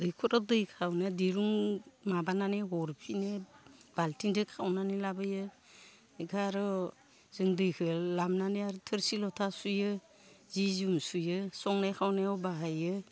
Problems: none marked